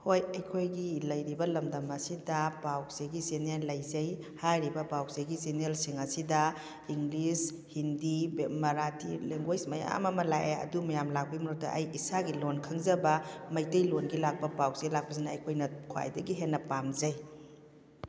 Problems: background conversations at intervals